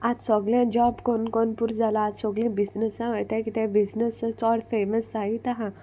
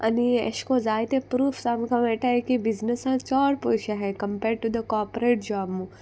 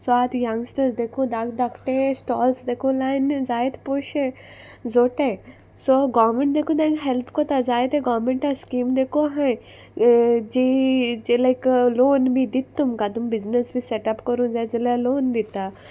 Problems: constant background noise